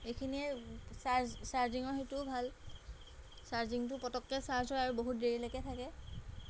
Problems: background sounds at intervals